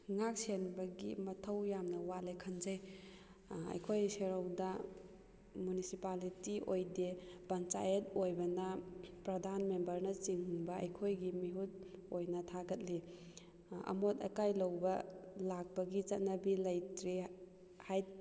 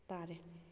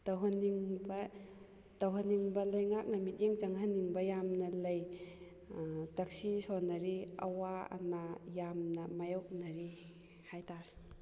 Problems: background sounds at intervals